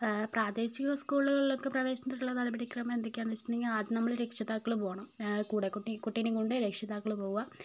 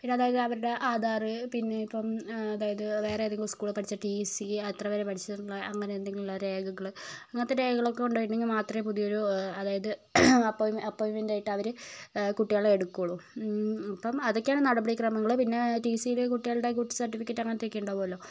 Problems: none marked